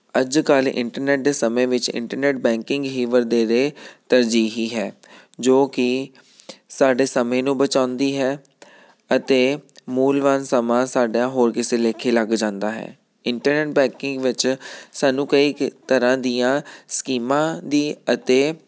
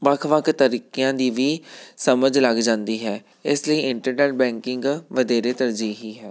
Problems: none marked